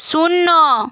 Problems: none marked